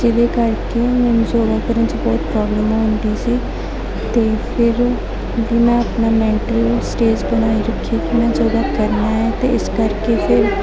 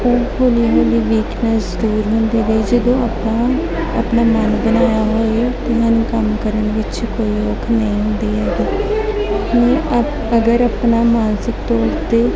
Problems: constant background noise, continuous background conversations